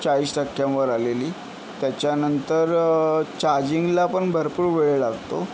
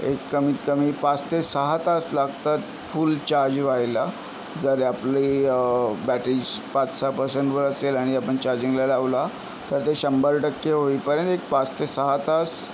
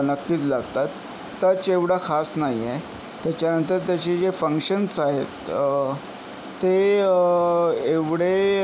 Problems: none marked